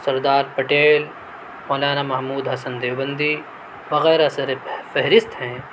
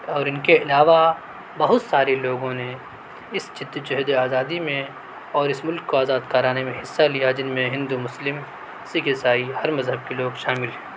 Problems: none marked